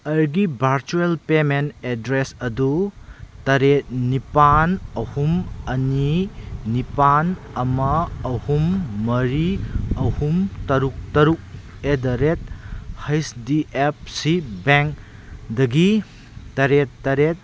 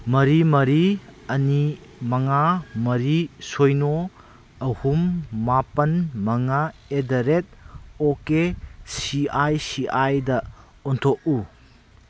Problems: none marked